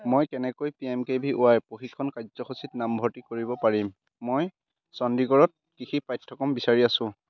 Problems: constant background noise, background conversations at intervals